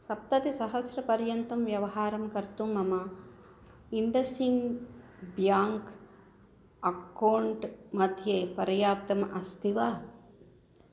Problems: none marked